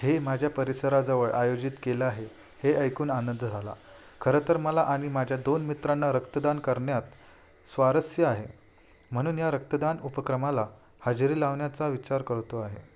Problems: none marked